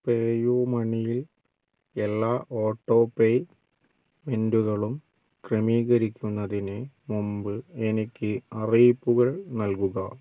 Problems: none marked